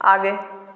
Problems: background sounds at intervals